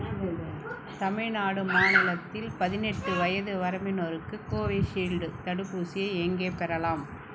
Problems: background sounds at intervals